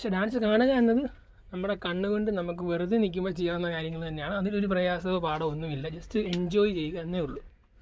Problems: none marked